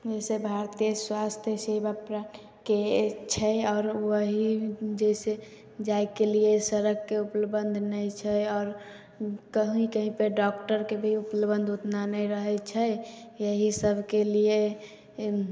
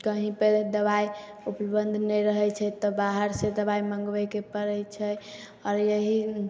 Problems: none marked